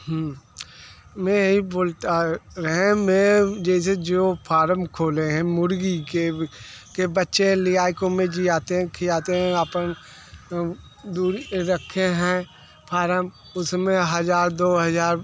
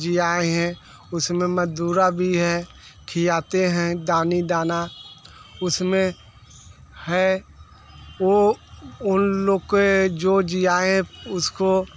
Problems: constant background noise